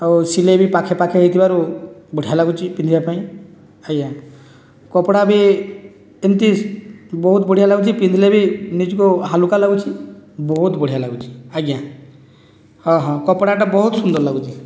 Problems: none marked